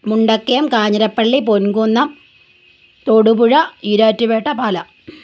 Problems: none marked